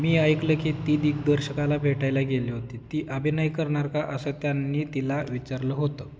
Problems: background sounds at intervals